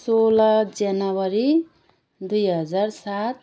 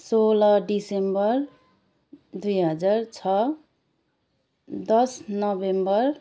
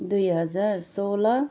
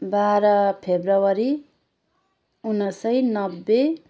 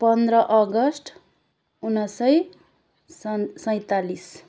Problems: none marked